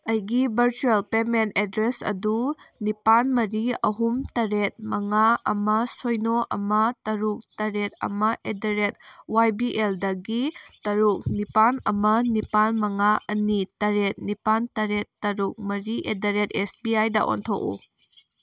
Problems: background sounds at intervals